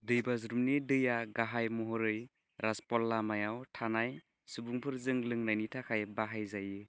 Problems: low volume